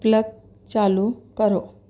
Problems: background sounds at intervals